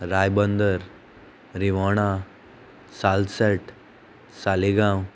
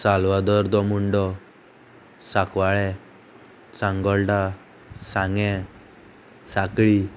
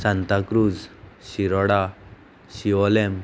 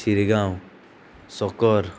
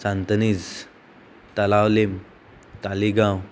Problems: constant background noise